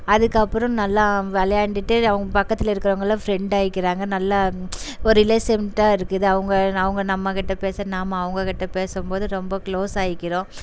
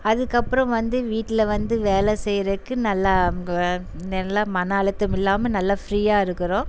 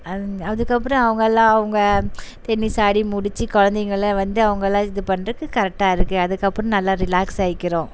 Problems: background sounds at intervals